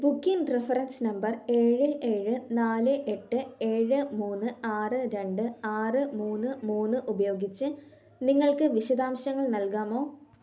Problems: low volume